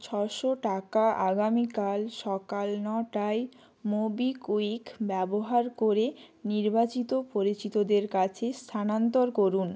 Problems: none marked